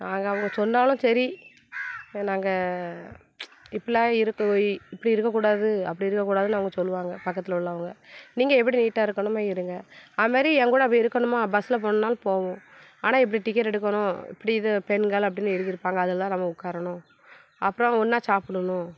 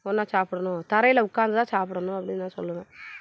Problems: background sounds at intervals